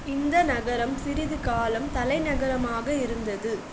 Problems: constant background noise